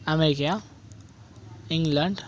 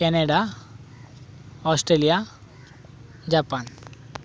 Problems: background sounds at intervals, background conversations at intervals